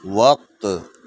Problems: none marked